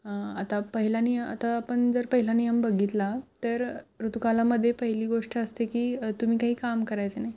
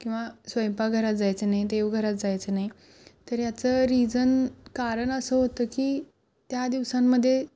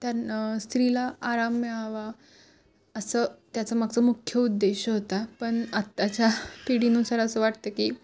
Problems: none marked